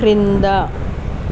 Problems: constant background noise